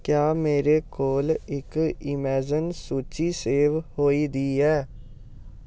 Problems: none marked